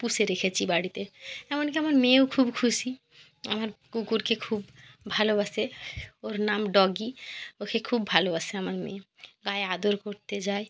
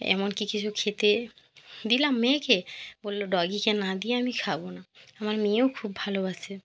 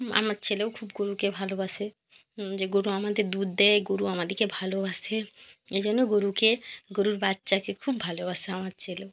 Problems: none marked